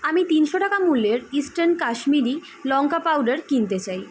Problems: constant background noise